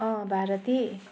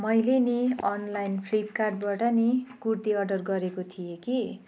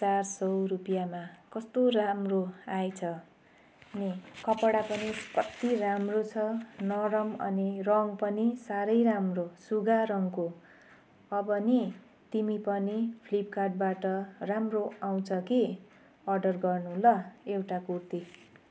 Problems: background sounds at intervals